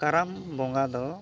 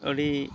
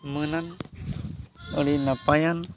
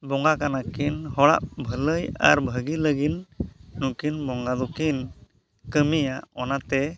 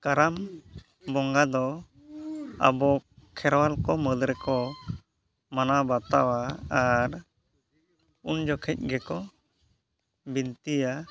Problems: background conversations at intervals